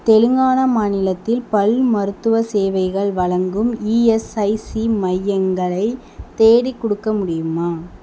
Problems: constant background noise